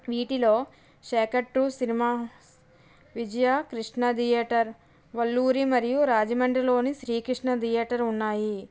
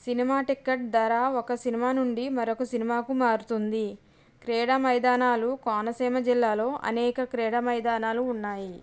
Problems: background sounds at intervals